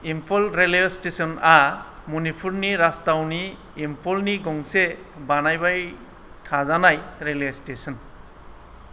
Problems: none marked